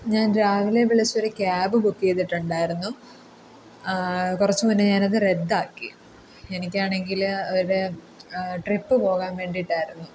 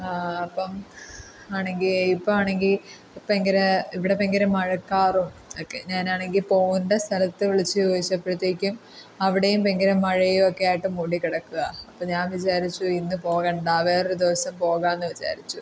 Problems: none marked